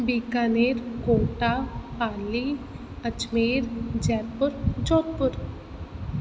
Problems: constant background noise, echo